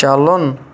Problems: none marked